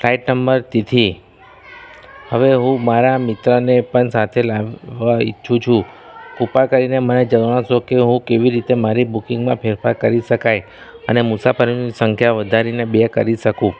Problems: constant background noise